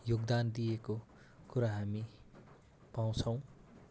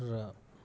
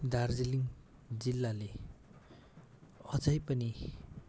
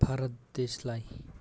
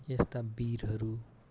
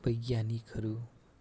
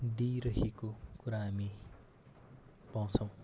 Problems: constant background noise